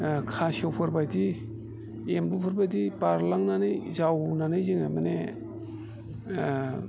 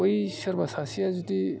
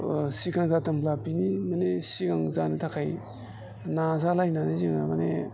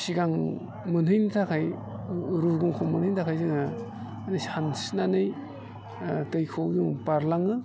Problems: constant background noise